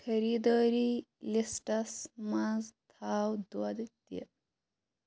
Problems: none marked